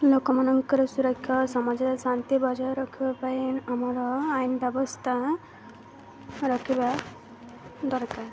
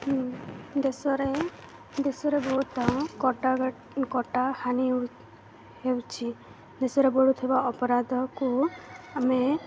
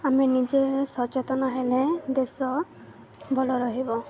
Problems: none marked